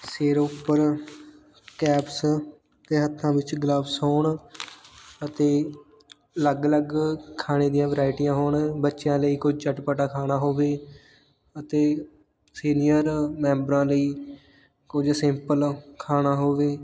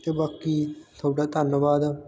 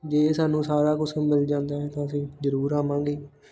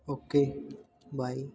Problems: constant background noise